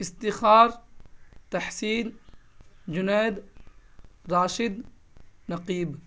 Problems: constant background noise